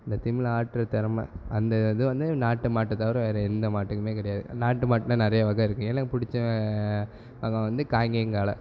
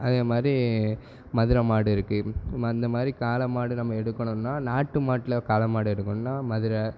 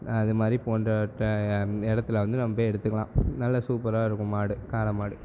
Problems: background sounds at intervals